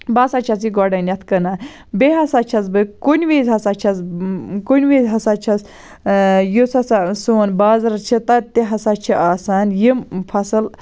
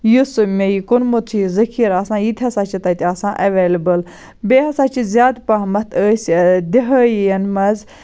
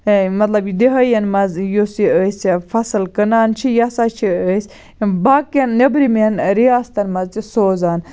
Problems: none marked